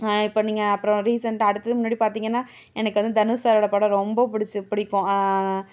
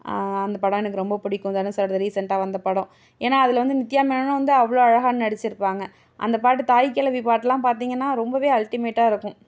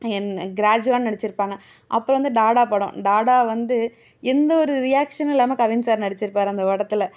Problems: none marked